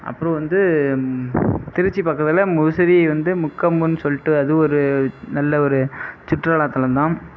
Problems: none marked